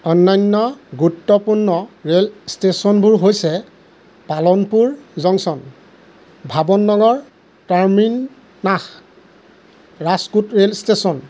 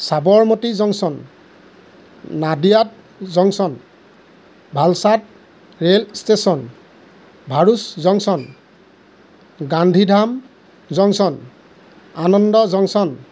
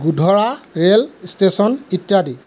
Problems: constant background noise